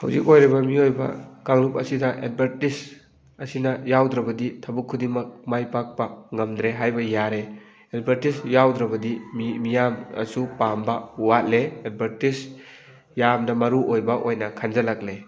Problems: background sounds at intervals, background conversations at intervals